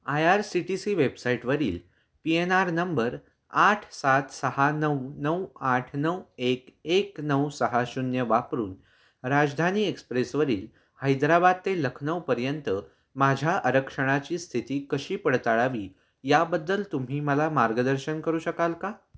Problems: none marked